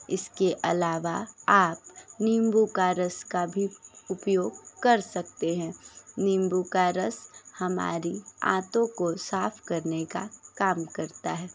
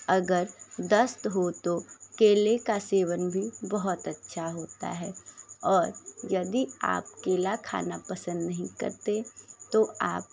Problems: constant background noise, background conversations at intervals